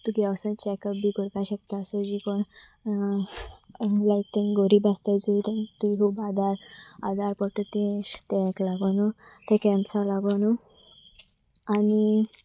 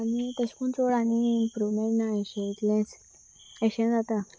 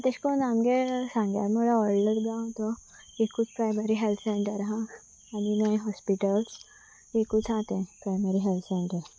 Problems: constant background noise